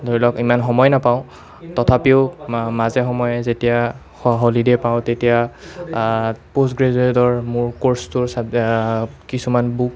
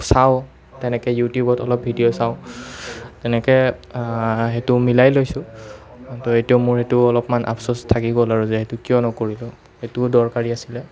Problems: none marked